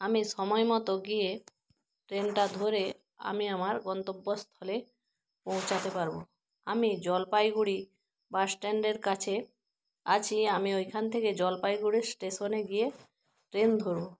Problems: constant background noise